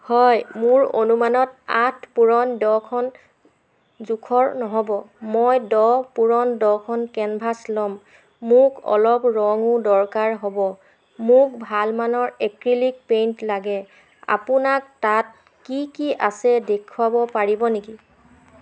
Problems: constant background noise, background conversations at intervals